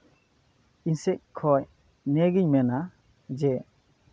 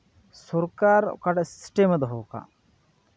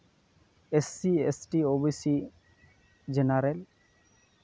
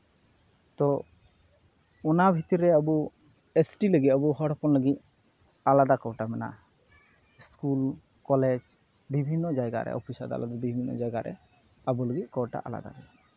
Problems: none marked